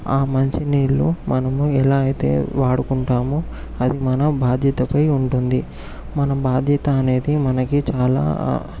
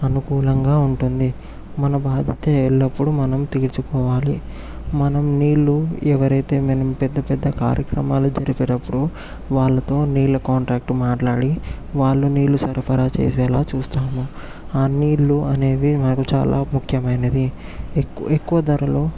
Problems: background sounds at intervals